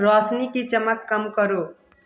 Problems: continuous background conversations